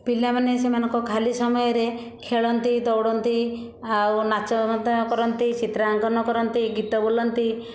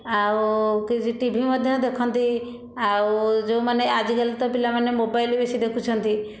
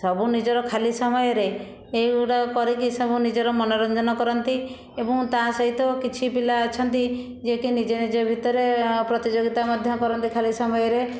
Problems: constant background noise